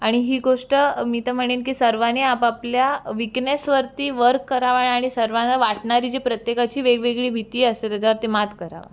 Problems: none marked